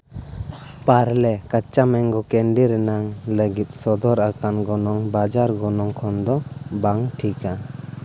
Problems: constant background noise